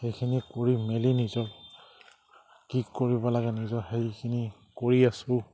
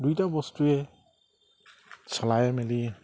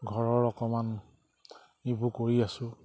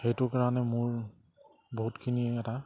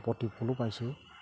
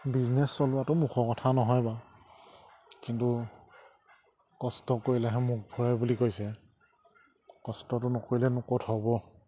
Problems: low volume